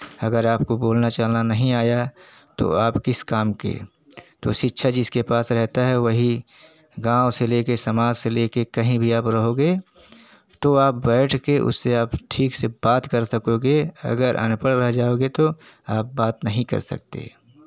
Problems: none marked